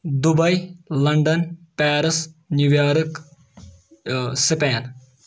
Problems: none marked